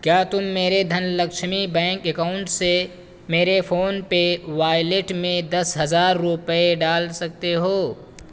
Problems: constant background noise